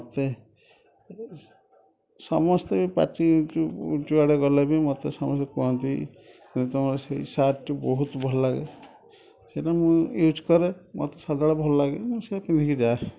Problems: constant background noise, continuous background conversations